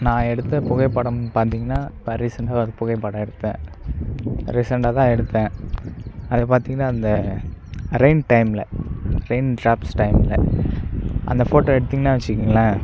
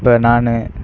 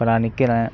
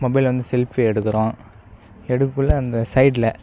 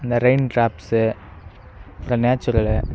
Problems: none marked